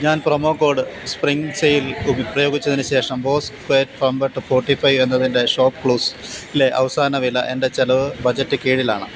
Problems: constant background noise